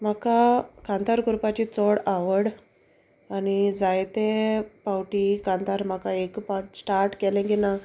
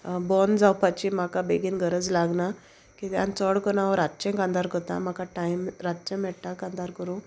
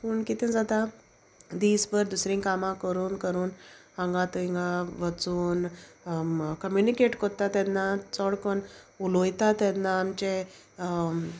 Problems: none marked